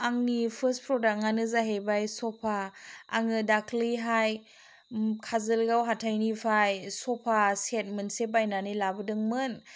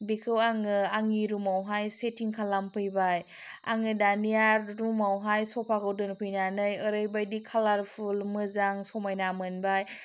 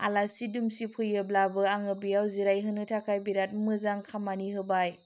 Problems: none marked